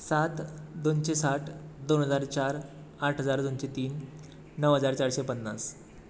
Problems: constant background noise